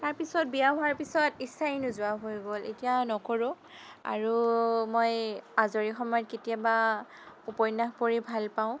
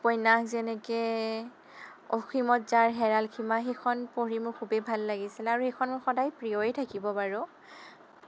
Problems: constant background noise